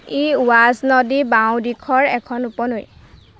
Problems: constant background noise